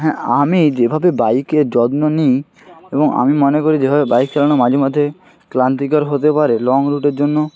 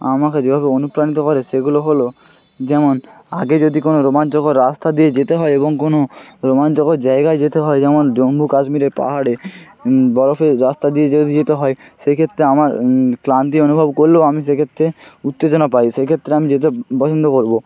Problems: none marked